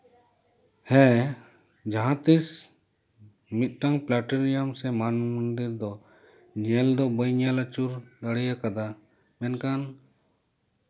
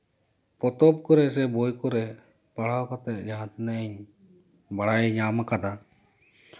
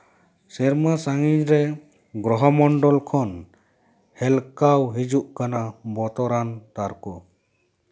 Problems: none marked